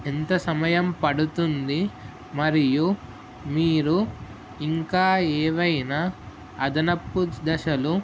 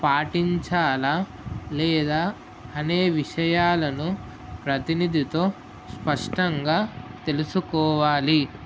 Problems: constant background noise